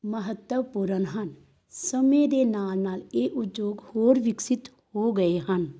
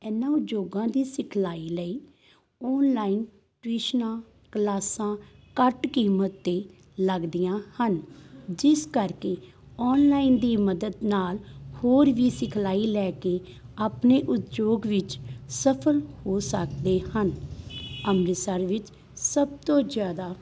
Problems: background sounds at intervals